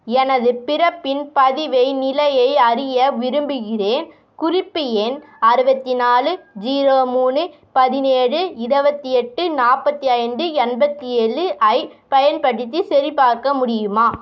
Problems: background sounds at intervals